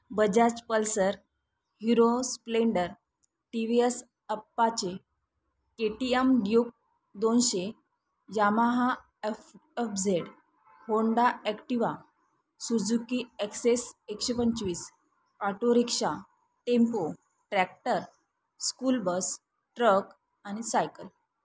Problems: none marked